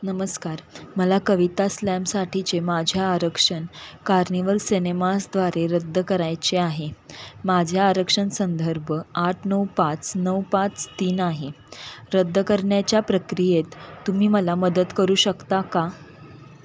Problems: none marked